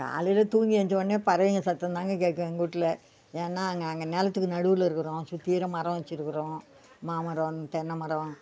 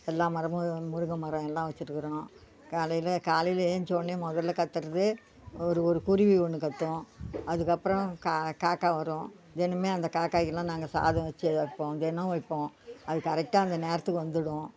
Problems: background sounds at intervals